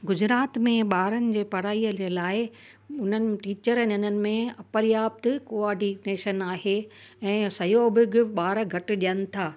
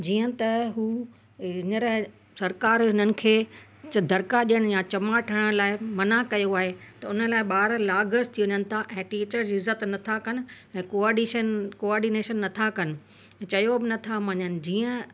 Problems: constant background noise